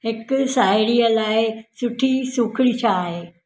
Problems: none marked